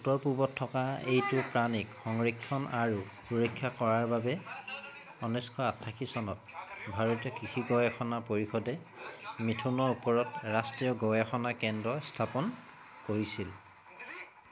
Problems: background sounds at intervals, continuous background conversations